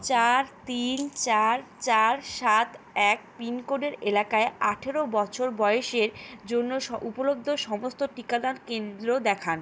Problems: background sounds at intervals